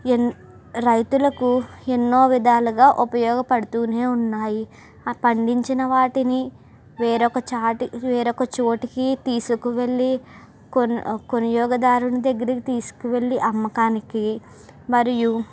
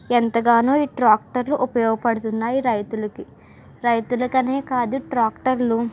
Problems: none marked